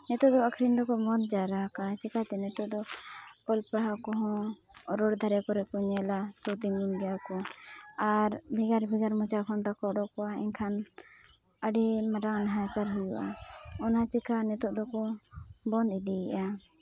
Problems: constant background noise, low volume